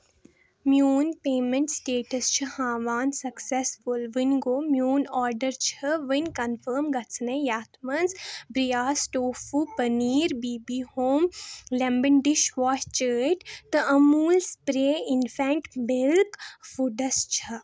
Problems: none marked